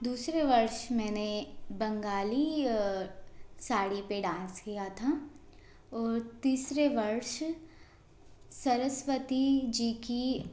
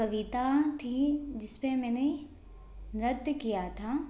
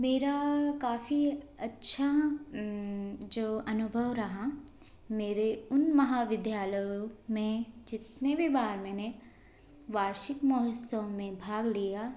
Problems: none marked